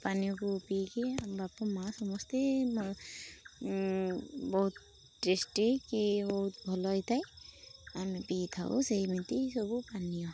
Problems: constant background noise